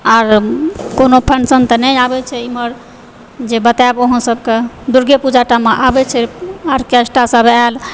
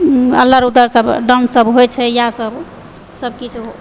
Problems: none marked